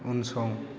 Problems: none marked